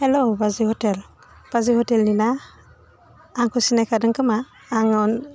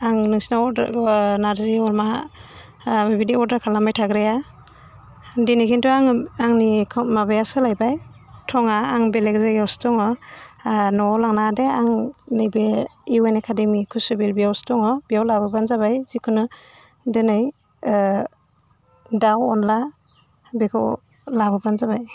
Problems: none marked